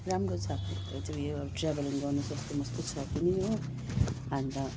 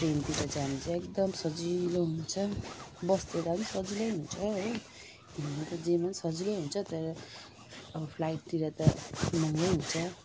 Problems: constant background noise